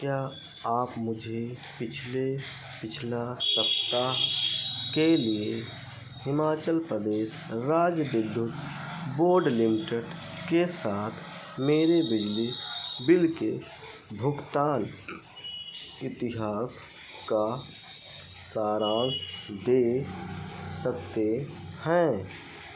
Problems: background sounds at intervals